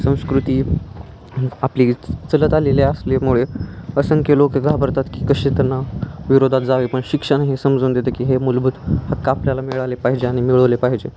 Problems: constant background noise, background conversations at intervals